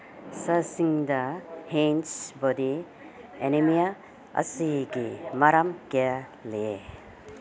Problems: background conversations at intervals